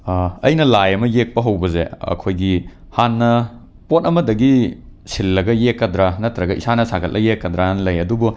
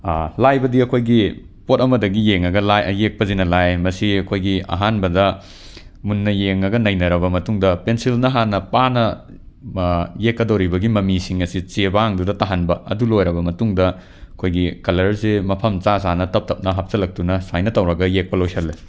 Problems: none marked